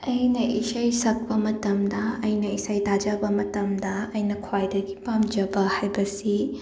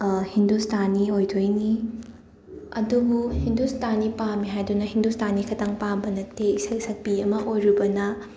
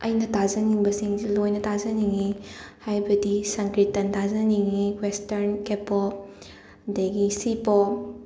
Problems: constant background noise